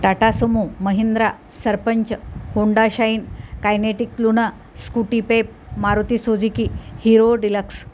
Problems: none marked